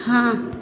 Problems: none marked